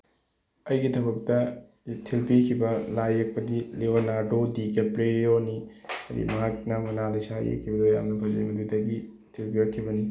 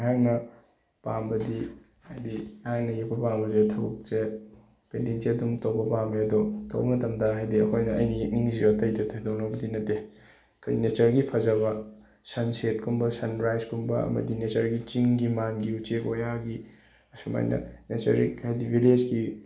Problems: background sounds at intervals